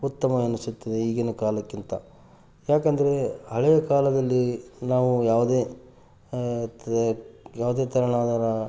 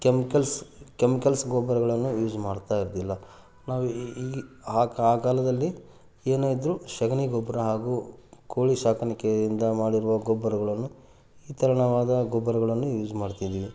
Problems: none marked